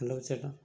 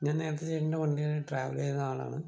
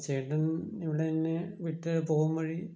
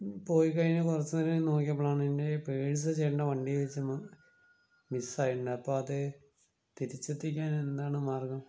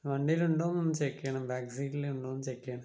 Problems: low volume